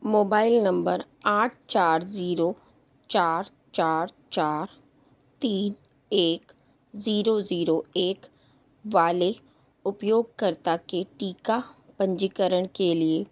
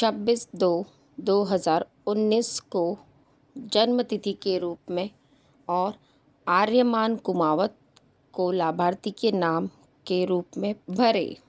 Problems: none marked